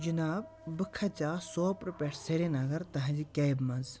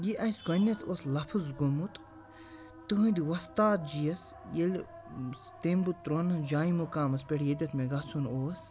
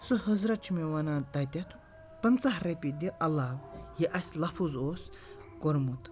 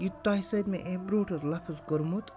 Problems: constant background noise